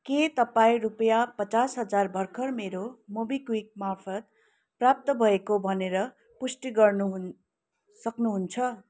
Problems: constant background noise